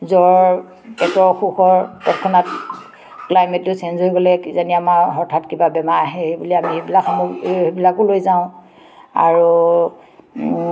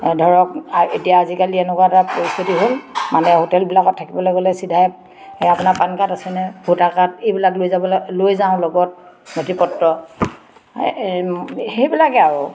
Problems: background sounds at intervals, background conversations at intervals